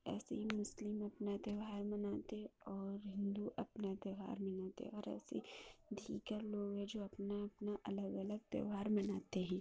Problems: constant background noise, low volume